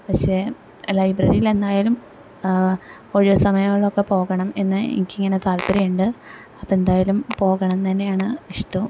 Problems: none marked